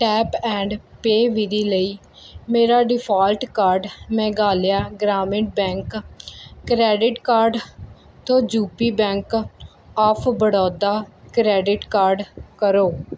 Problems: background sounds at intervals